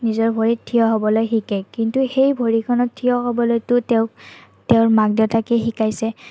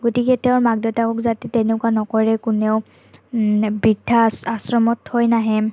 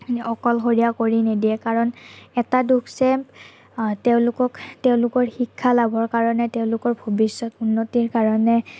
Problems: none marked